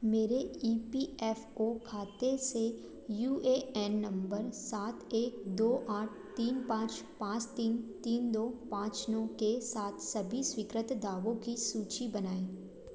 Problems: none marked